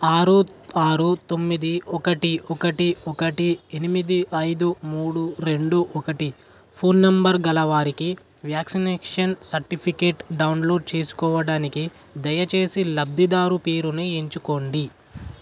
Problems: constant background noise